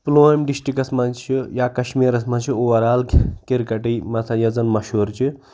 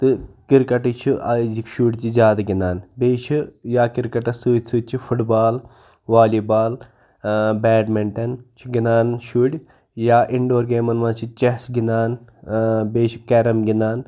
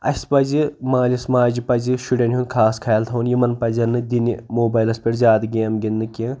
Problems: background conversations at intervals